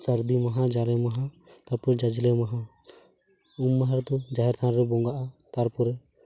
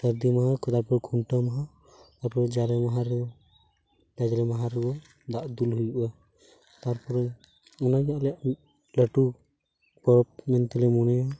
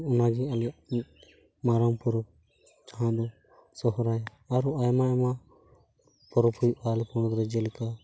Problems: constant background noise